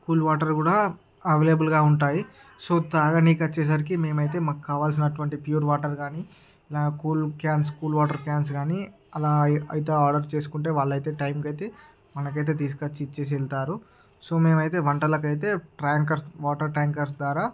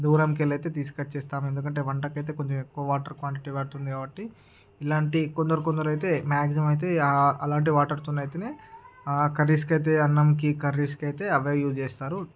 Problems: background conversations at intervals